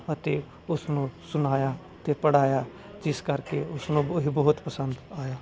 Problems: constant background noise, background conversations at intervals